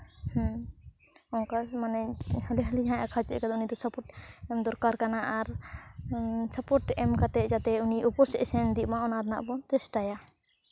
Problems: none marked